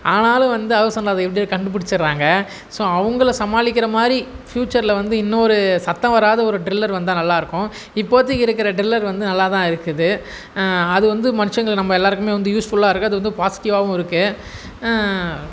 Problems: background sounds at intervals